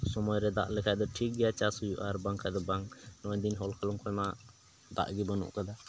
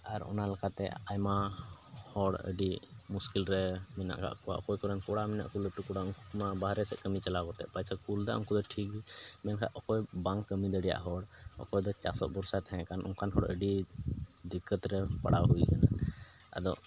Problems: background sounds at intervals, low volume